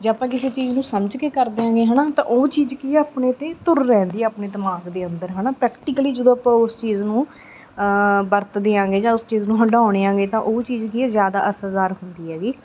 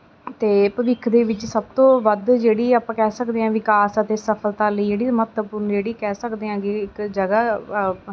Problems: background sounds at intervals